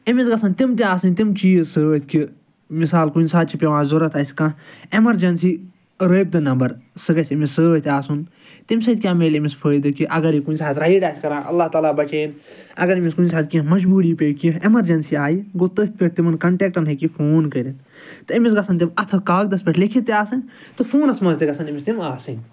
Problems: none marked